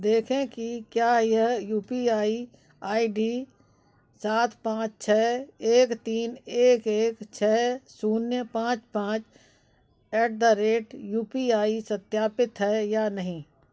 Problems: background sounds at intervals, background conversations at intervals